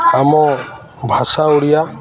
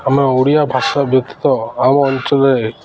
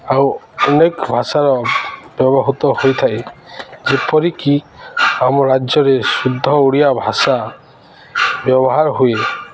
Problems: none marked